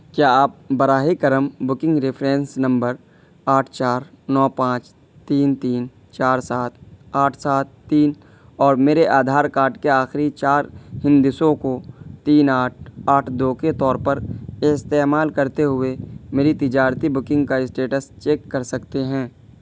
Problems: constant background noise